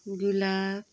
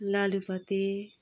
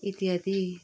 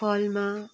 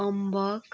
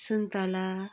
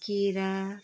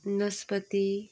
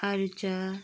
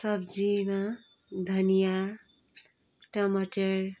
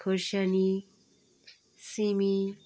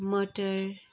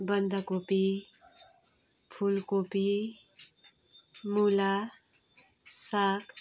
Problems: background sounds at intervals